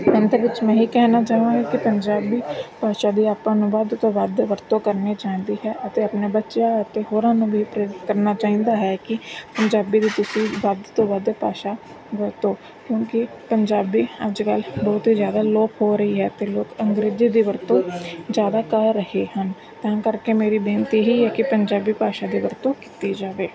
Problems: constant background noise, background conversations at intervals